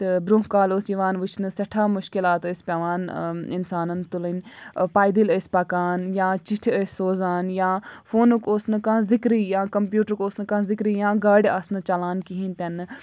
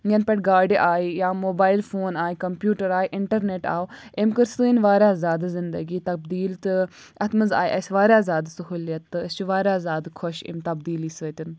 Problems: none marked